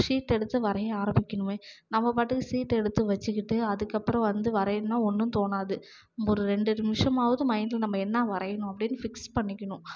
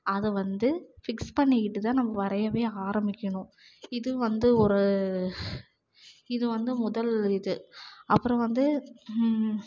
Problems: none marked